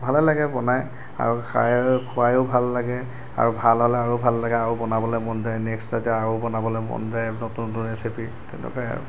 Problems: background sounds at intervals